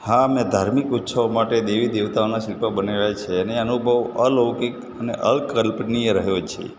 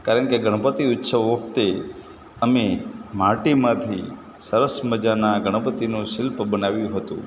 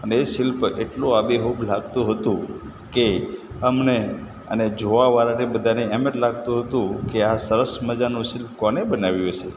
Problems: none marked